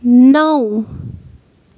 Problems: none marked